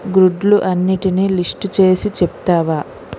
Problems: constant background noise